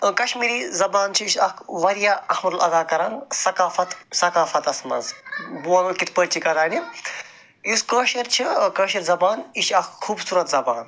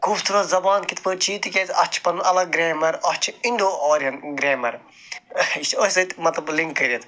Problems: background sounds at intervals, background conversations at intervals